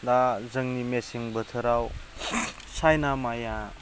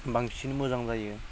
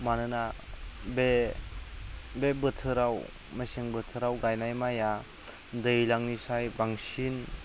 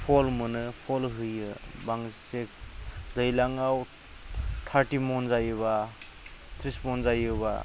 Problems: none marked